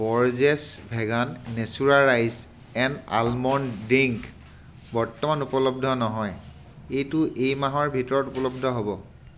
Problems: constant background noise